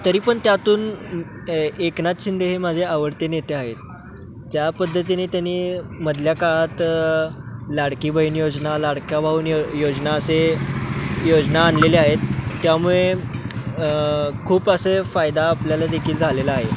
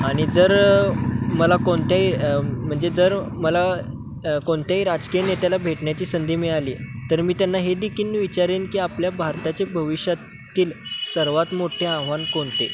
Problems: constant background noise, background conversations at intervals